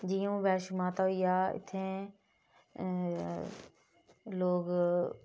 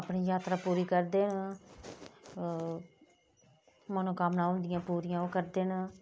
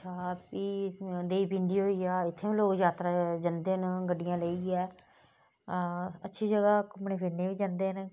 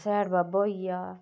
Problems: low volume